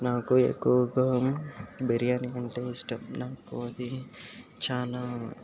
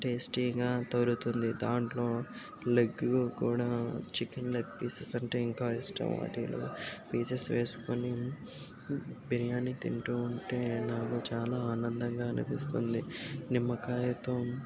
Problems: background sounds at intervals